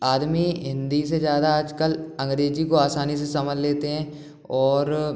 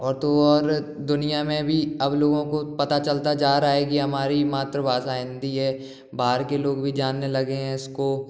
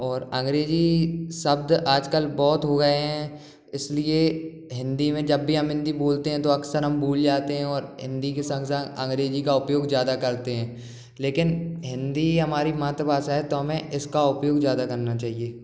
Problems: background sounds at intervals, background conversations at intervals